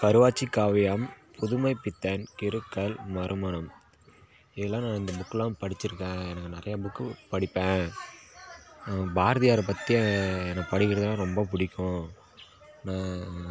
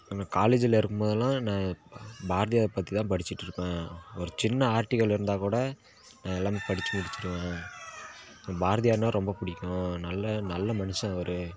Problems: none marked